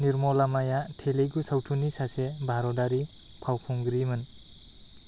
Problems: none marked